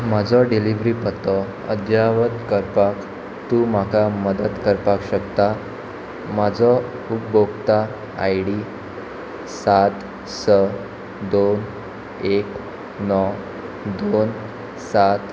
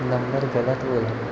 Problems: background conversations at intervals